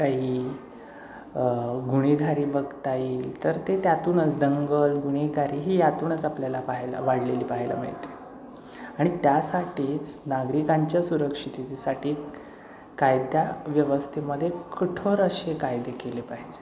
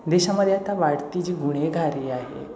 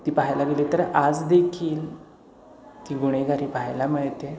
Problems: constant background noise, echo